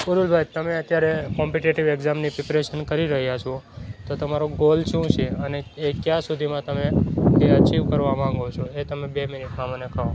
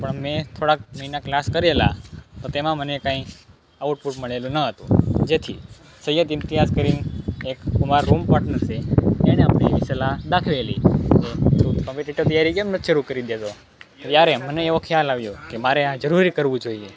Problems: constant background noise